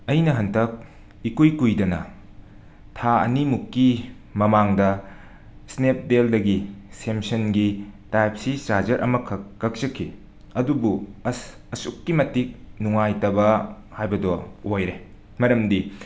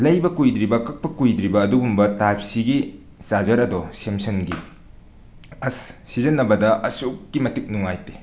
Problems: background sounds at intervals, background conversations at intervals